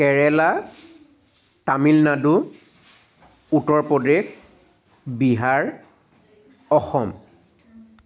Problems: constant background noise